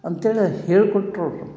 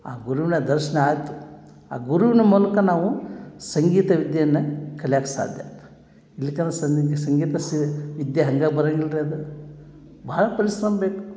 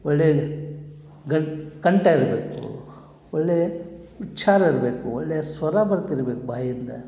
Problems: none marked